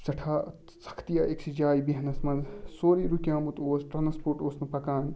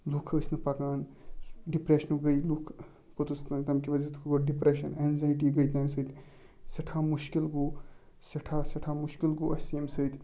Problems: background sounds at intervals